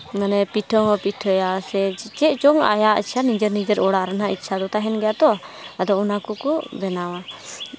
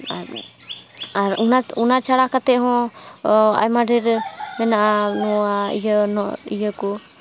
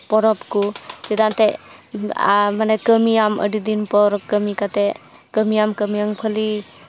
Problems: background sounds at intervals, background conversations at intervals